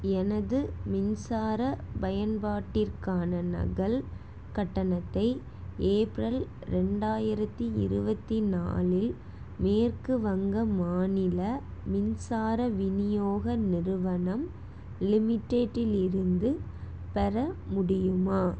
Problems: none marked